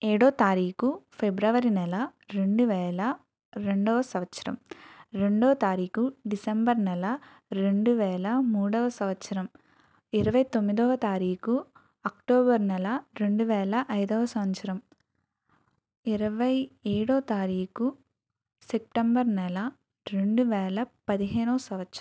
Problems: none marked